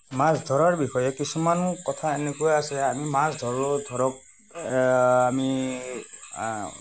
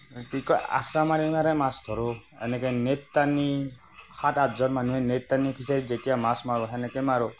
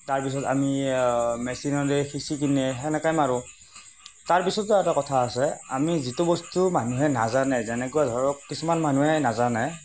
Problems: constant background noise